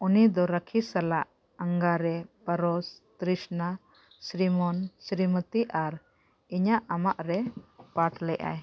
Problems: none marked